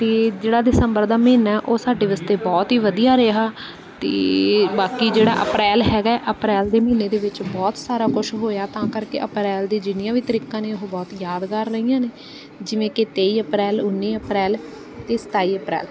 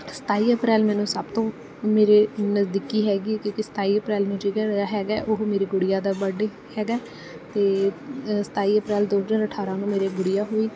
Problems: background sounds at intervals